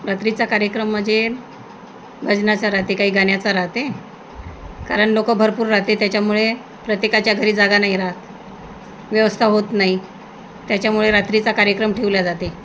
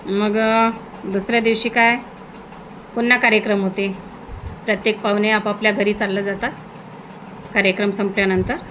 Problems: constant background noise